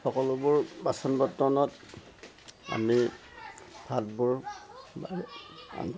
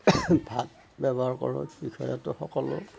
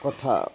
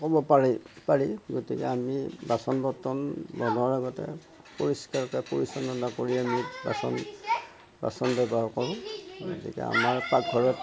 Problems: constant background noise